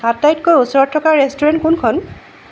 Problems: background sounds at intervals